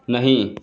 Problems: none marked